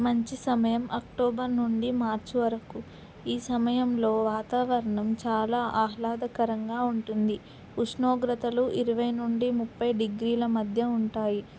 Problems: constant background noise